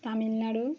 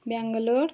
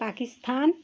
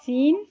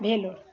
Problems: constant background noise, background conversations at intervals